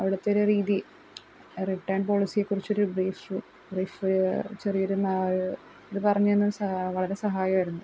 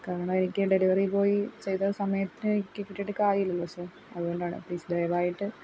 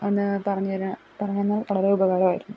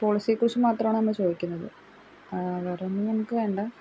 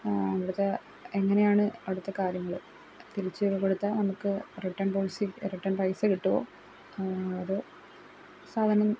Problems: none marked